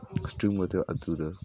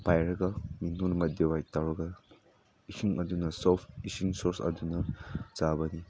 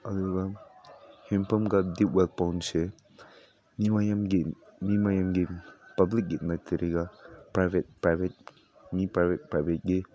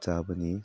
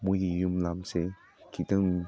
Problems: none marked